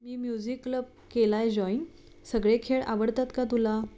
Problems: background sounds at intervals